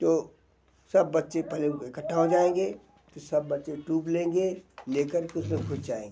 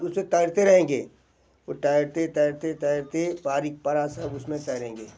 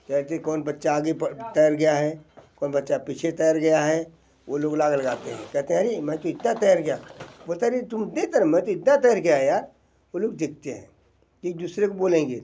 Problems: none marked